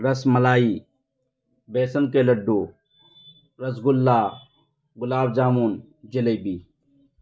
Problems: none marked